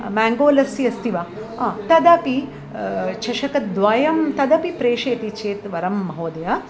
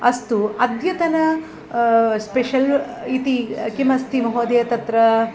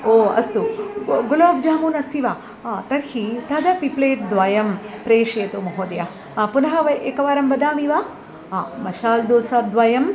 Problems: constant background noise